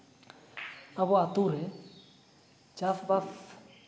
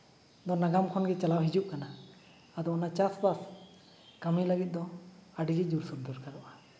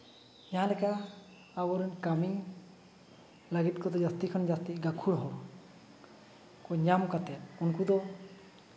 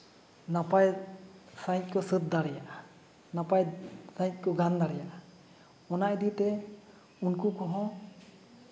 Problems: background sounds at intervals